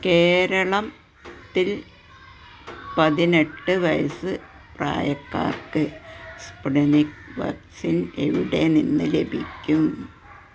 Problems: constant background noise